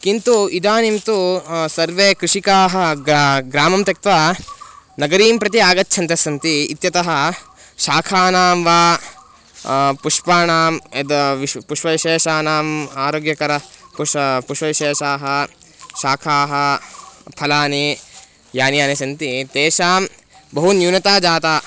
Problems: constant background noise